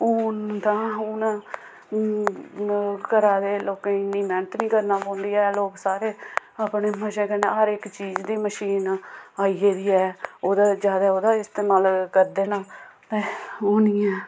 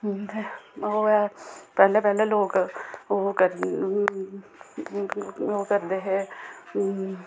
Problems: background sounds at intervals